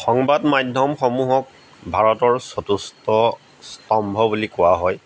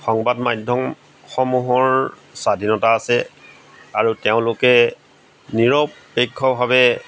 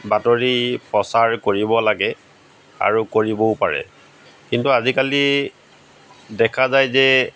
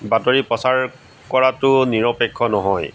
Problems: background sounds at intervals